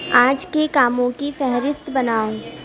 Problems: constant background noise, background conversations at intervals